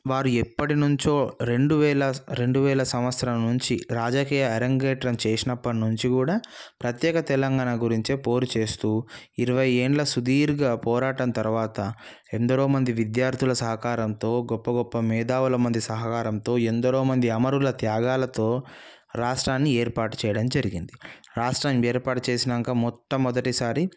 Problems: none marked